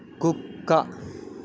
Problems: constant background noise